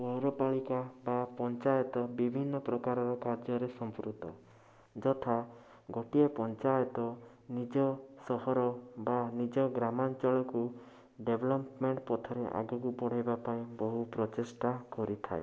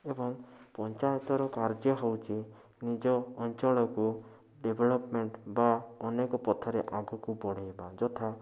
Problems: constant background noise